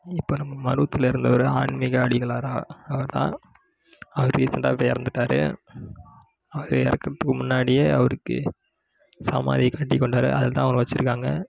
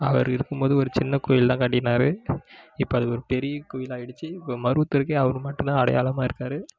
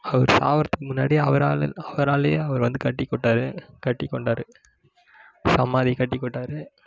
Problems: background conversations at intervals